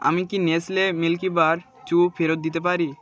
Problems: constant background noise